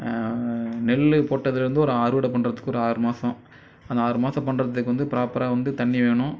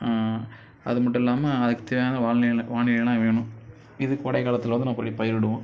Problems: none marked